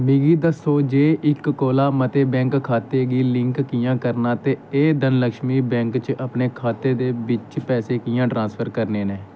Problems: none marked